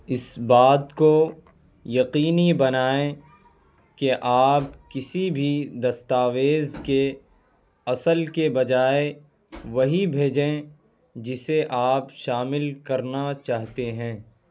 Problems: none marked